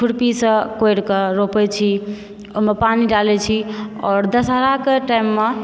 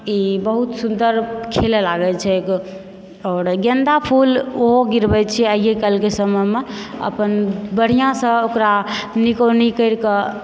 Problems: background sounds at intervals